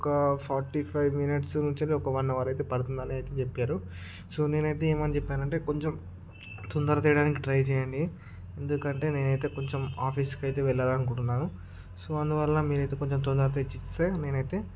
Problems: none marked